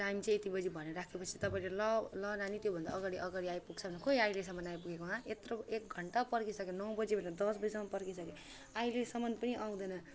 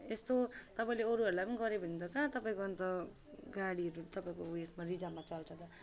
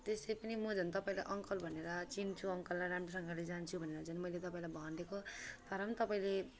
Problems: constant background noise